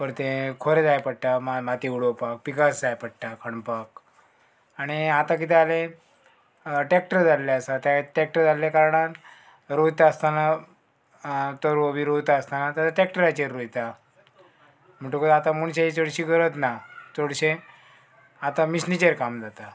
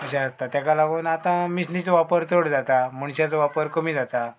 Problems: background sounds at intervals